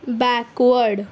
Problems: constant background noise